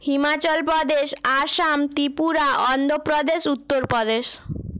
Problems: none marked